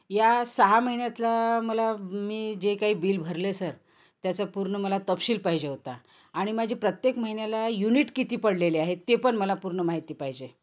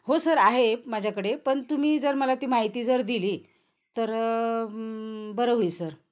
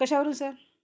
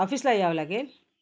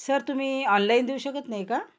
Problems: constant background noise, background conversations at intervals